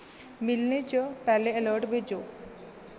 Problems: constant background noise